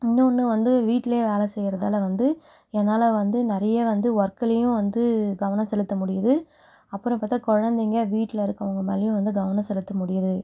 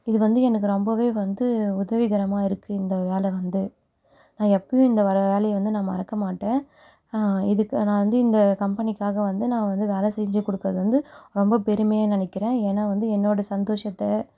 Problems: none marked